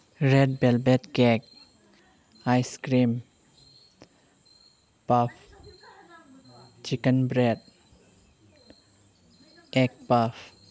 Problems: background sounds at intervals